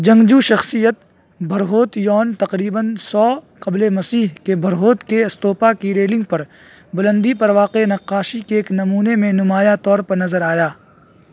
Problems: constant background noise